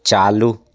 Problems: constant background noise